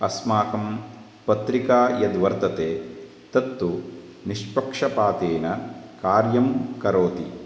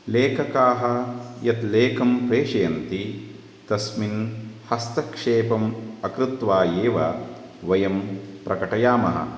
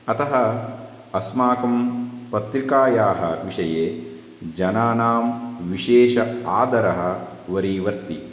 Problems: constant background noise